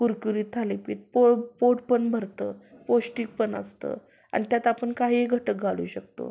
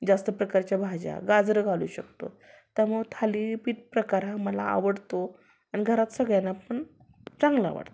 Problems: background sounds at intervals